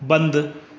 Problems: constant background noise, echo